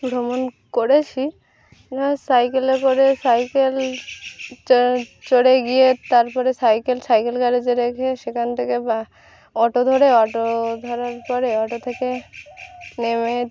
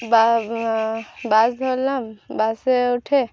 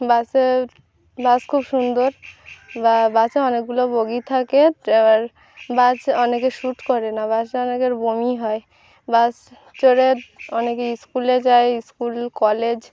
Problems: background sounds at intervals